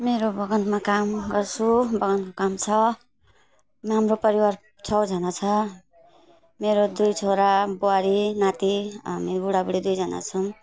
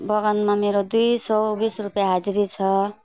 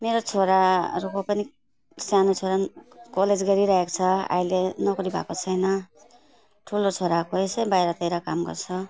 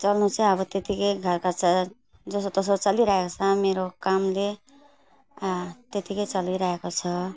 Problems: none marked